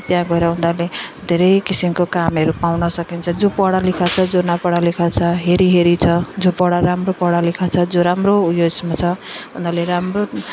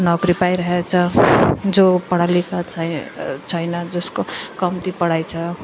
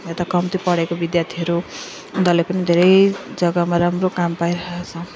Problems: continuous background conversations